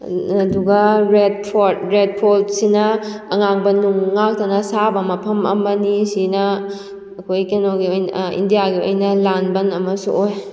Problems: constant background noise